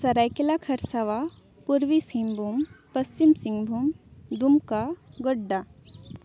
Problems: background sounds at intervals